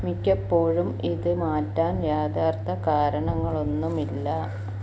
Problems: background sounds at intervals